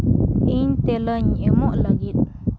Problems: constant background noise